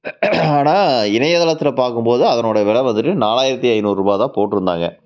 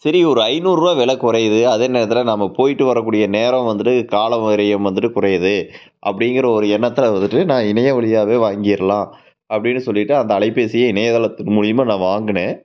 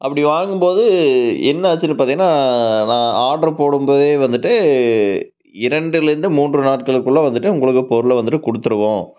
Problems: constant background noise